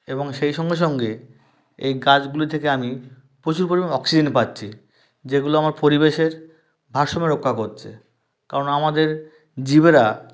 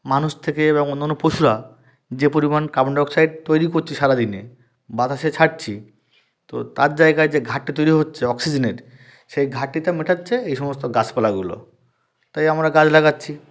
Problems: none marked